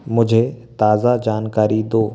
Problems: constant background noise